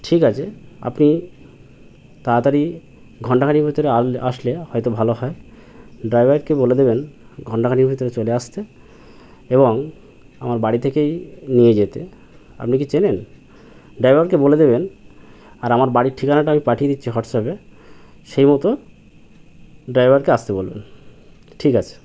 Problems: constant background noise